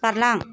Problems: background sounds at intervals